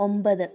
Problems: low volume